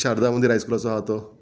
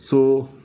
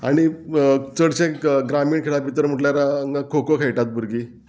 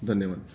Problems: none marked